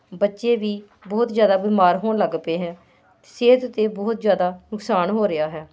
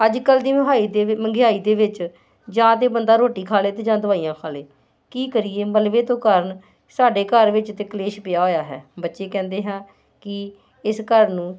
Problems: constant background noise